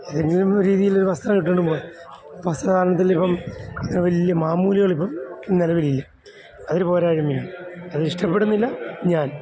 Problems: constant background noise